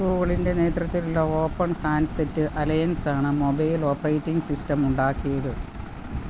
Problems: constant background noise